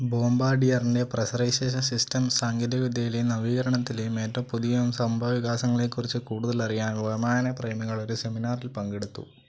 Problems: low volume